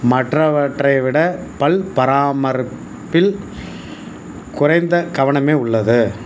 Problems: constant background noise